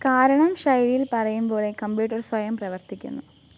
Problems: constant background noise